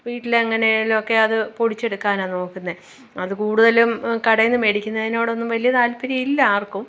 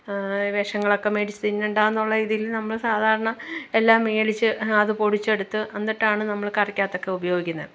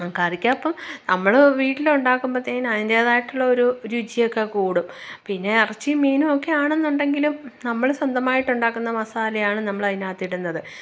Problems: none marked